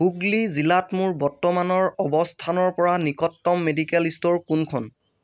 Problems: none marked